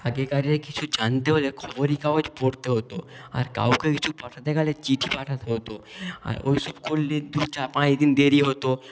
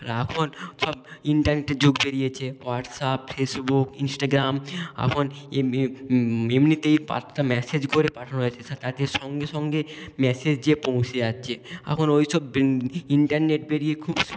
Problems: background sounds at intervals